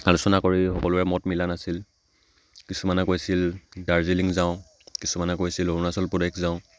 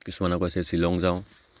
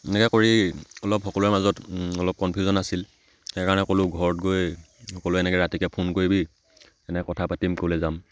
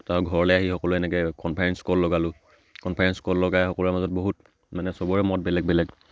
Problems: none marked